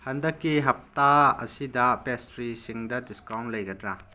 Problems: low volume